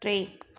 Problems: constant background noise, echo